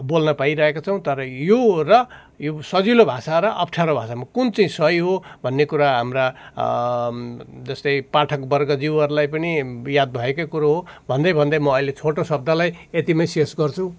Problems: none marked